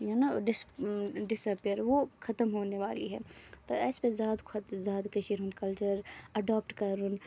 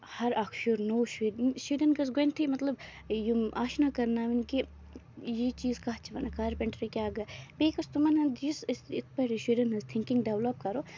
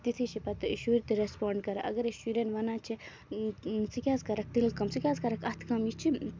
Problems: background sounds at intervals, low volume